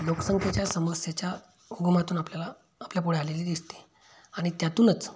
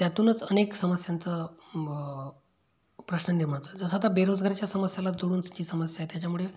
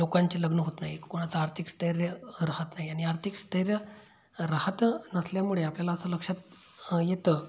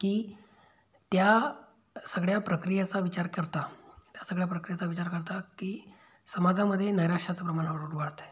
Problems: background sounds at intervals